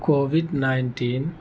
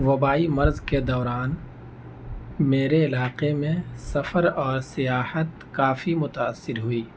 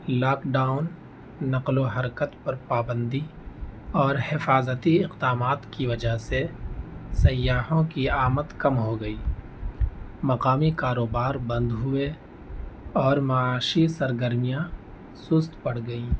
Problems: constant background noise